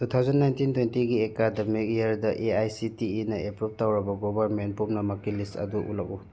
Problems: background sounds at intervals